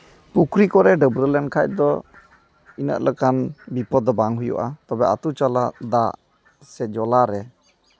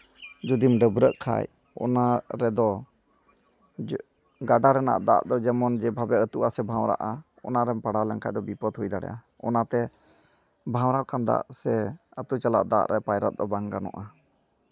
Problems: background sounds at intervals